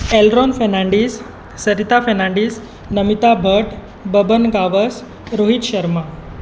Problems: constant background noise